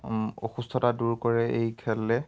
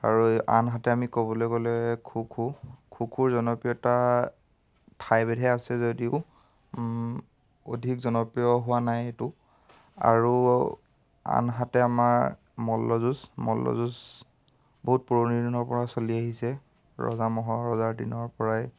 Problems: none marked